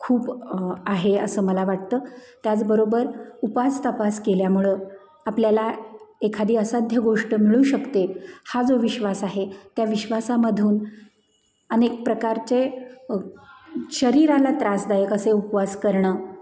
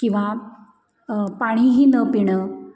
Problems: none marked